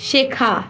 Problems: none marked